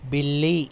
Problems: none marked